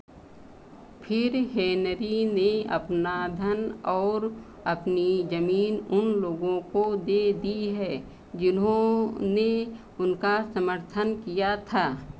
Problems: constant background noise